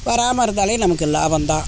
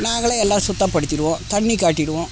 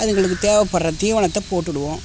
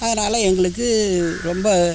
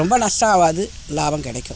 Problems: constant background noise